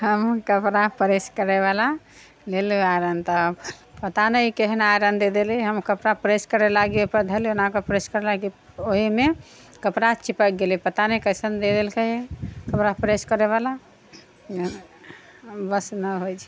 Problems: background sounds at intervals